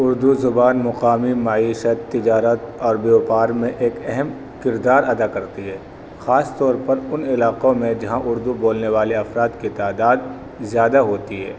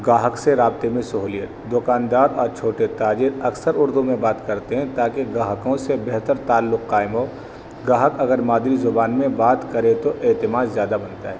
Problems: constant background noise